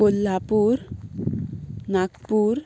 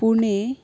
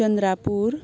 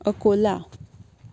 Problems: constant background noise